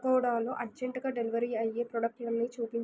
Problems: low volume